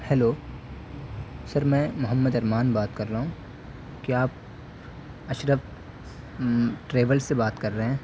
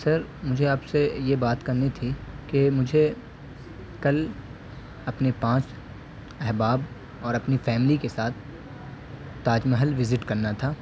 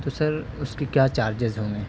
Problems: constant background noise